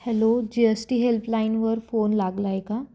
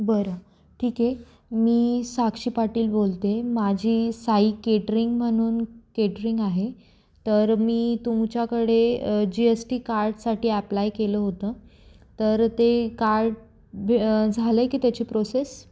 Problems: constant background noise, echo